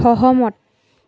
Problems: none marked